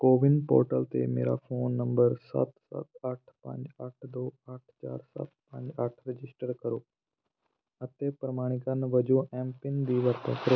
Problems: background sounds at intervals